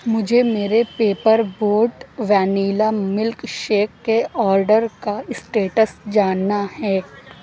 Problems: constant background noise